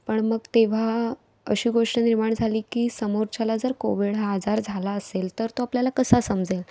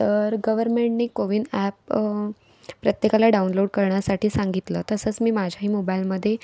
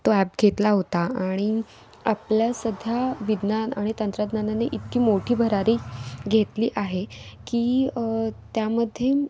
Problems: background sounds at intervals